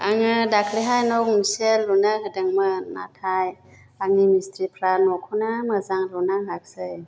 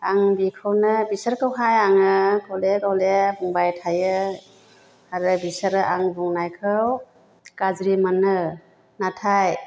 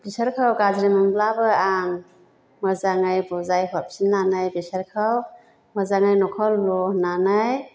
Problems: none marked